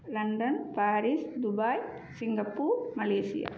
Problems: low volume